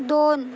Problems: constant background noise